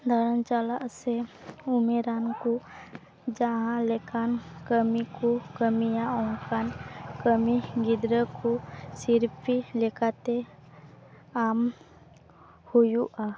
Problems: background sounds at intervals